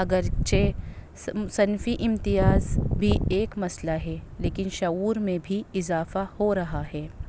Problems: constant background noise, low volume